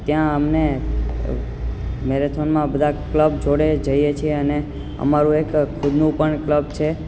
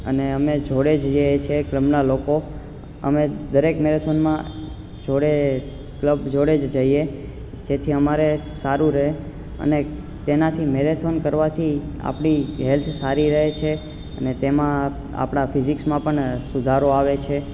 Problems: constant background noise